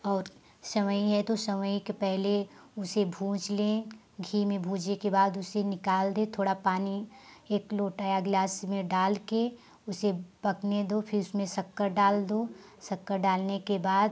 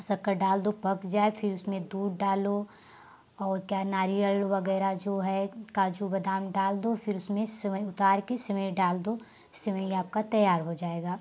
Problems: constant background noise